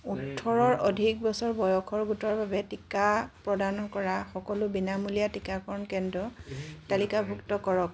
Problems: background sounds at intervals, background conversations at intervals